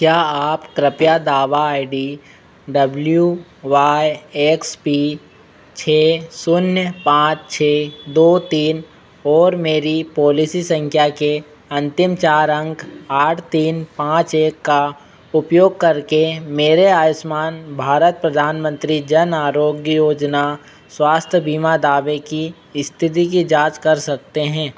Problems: constant background noise